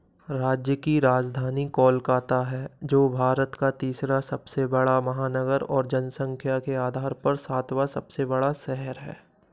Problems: none marked